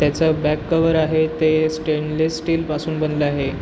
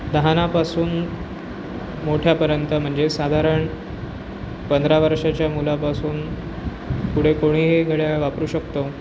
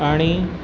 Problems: constant background noise